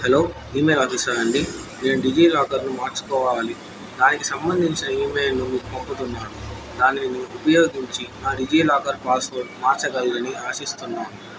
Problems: constant background noise